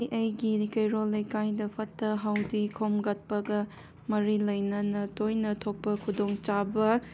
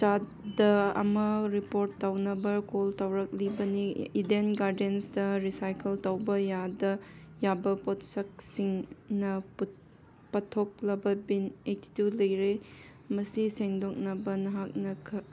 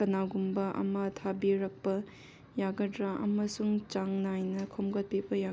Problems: background sounds at intervals